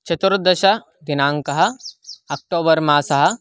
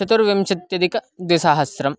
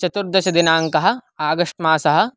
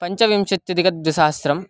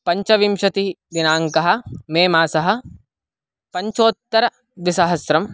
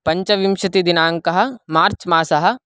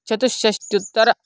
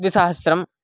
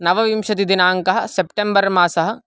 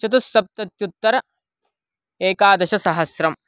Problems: constant background noise